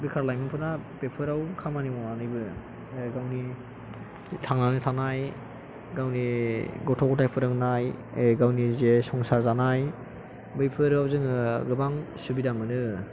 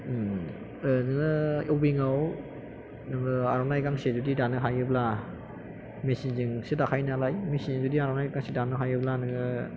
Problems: background sounds at intervals